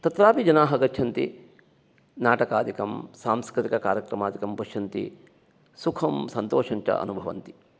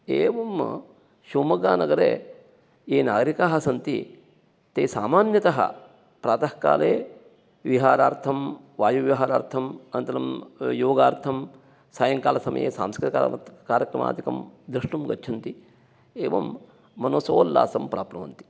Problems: none marked